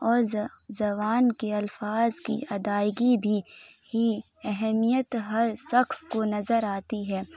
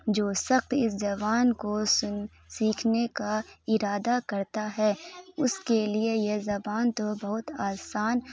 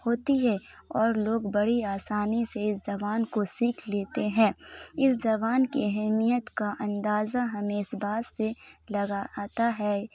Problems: none marked